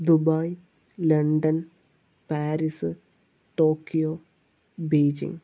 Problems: low volume